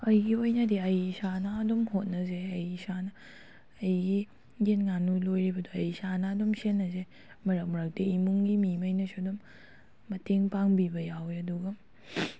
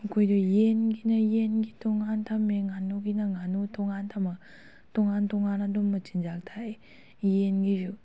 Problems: none marked